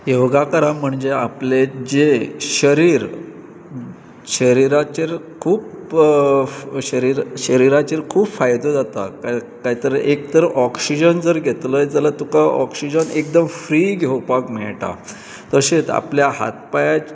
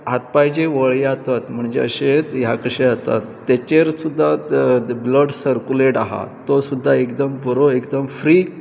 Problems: constant background noise, background conversations at intervals